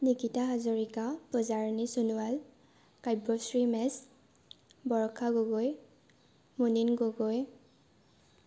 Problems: none marked